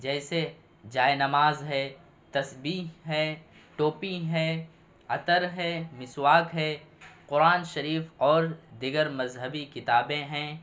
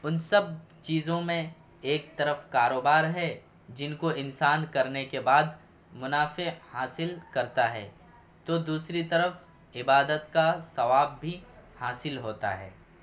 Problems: none marked